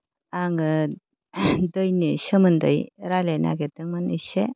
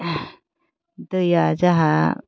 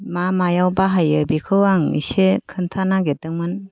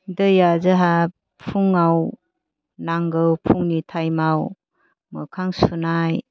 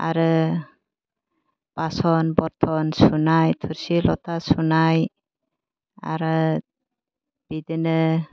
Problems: low volume